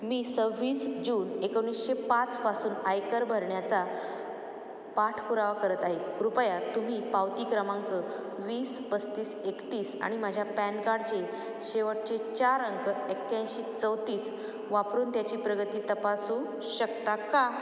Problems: none marked